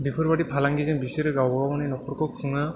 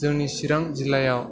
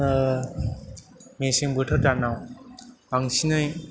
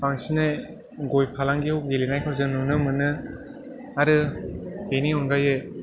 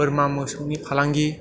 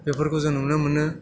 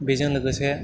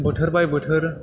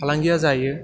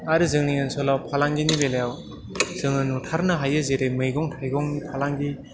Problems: background sounds at intervals, background conversations at intervals